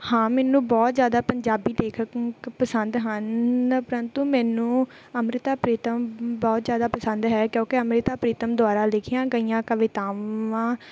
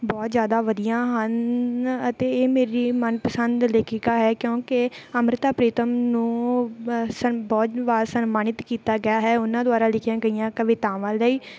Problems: none marked